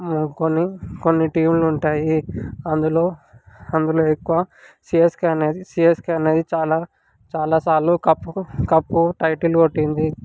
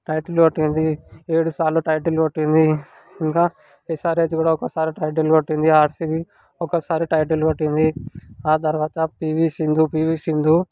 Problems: background conversations at intervals